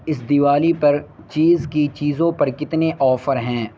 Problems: constant background noise